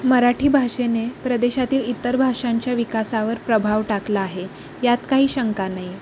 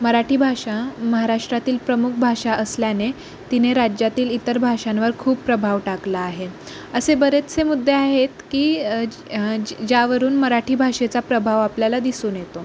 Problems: constant background noise